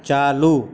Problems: constant background noise